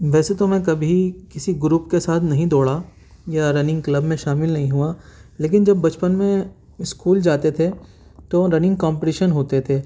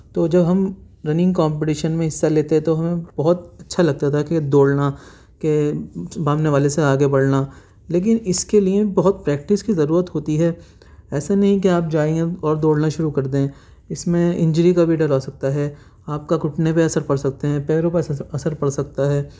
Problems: none marked